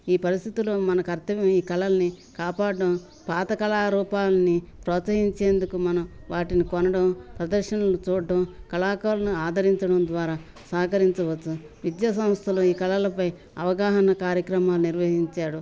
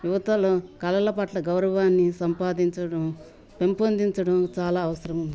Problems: none marked